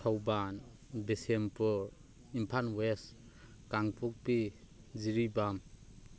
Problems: constant background noise, continuous background conversations